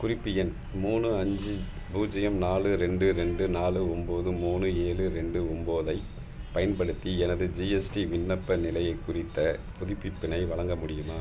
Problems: constant background noise